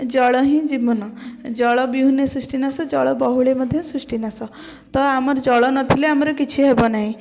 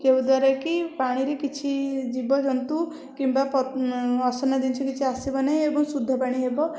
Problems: none marked